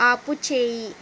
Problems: constant background noise